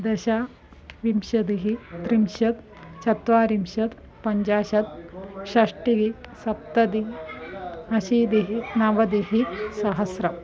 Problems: continuous background conversations